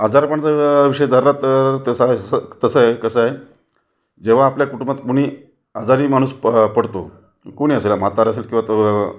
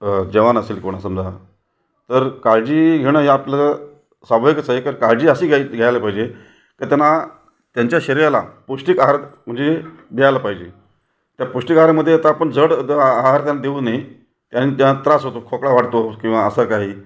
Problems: none marked